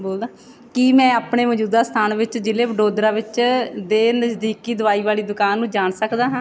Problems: background conversations at intervals